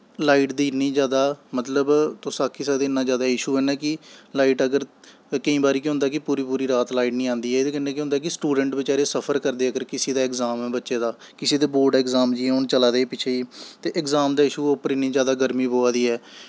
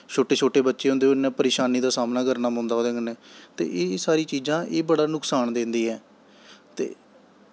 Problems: none marked